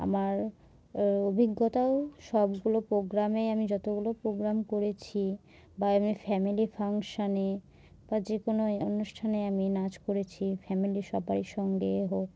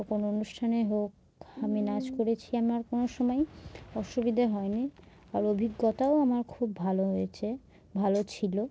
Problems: background sounds at intervals